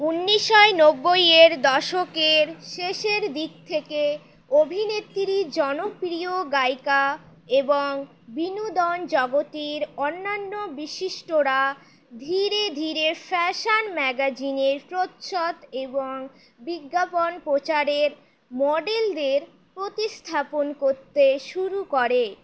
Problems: none marked